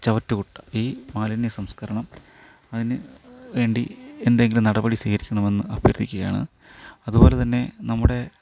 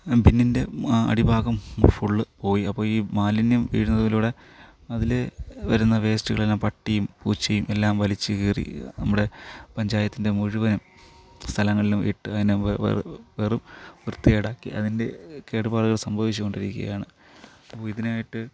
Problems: background sounds at intervals